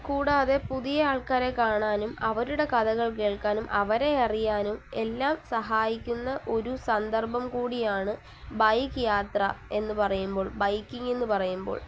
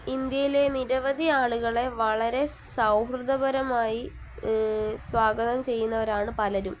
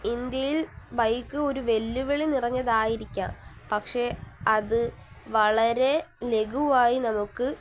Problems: constant background noise, low volume